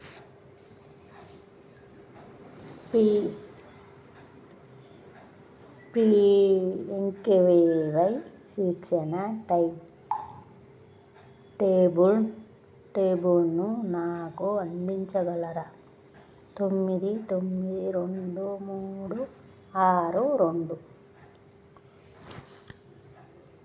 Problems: none marked